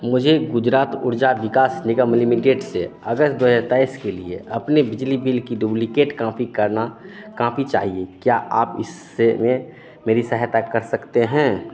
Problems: constant background noise, continuous background conversations